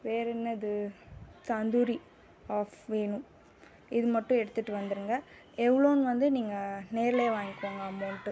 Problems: background sounds at intervals